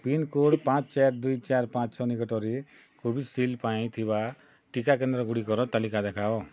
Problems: background sounds at intervals